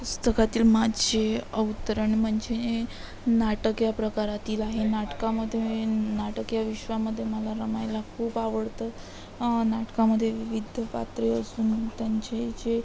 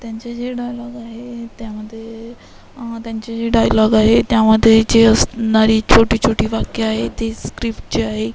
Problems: constant background noise, background conversations at intervals